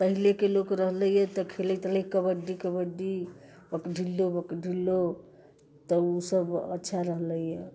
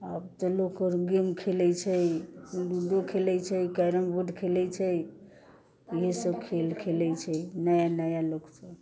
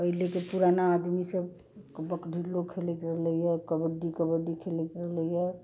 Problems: constant background noise